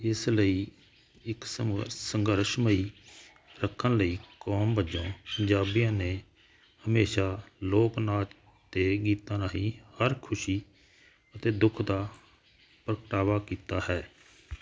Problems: none marked